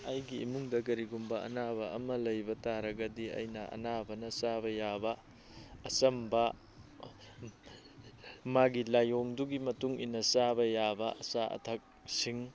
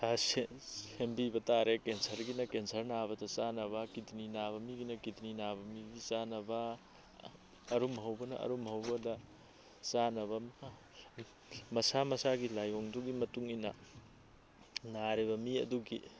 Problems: none marked